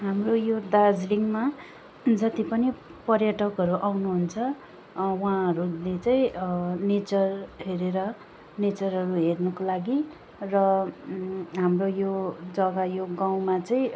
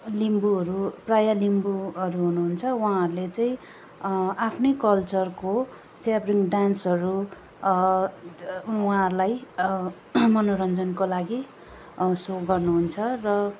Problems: background sounds at intervals